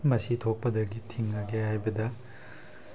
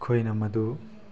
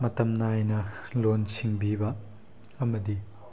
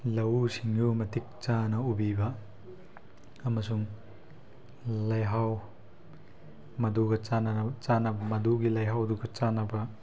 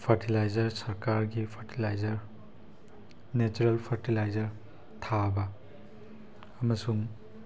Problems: background sounds at intervals